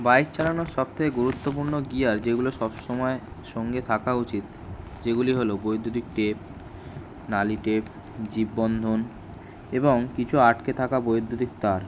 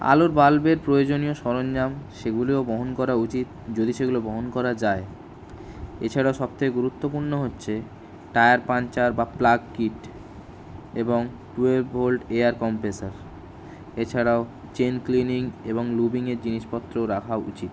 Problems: none marked